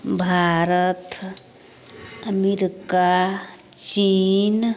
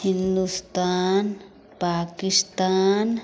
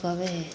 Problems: none marked